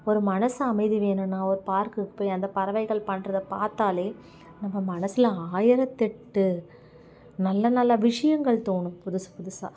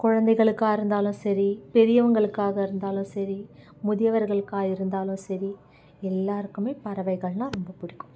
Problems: background sounds at intervals